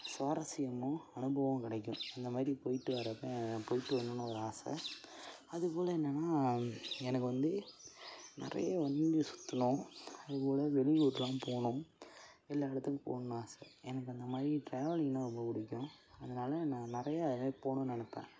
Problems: constant background noise